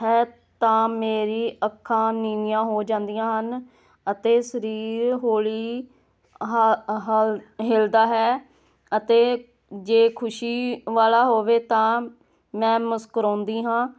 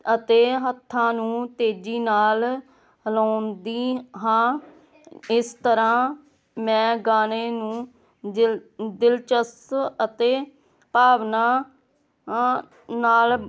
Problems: none marked